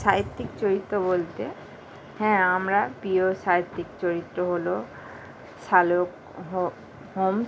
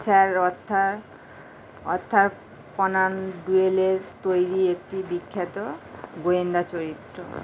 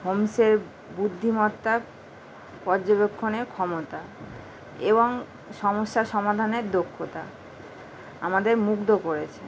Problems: none marked